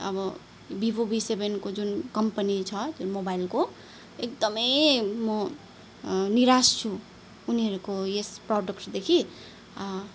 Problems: none marked